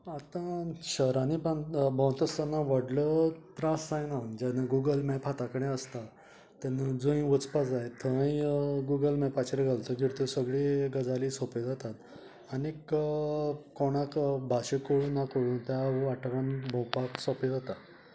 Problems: none marked